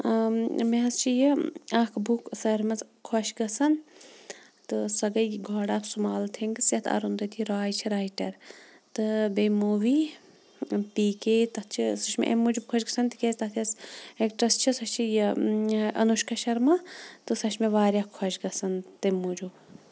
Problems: background sounds at intervals